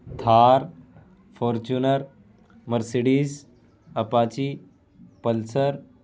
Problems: constant background noise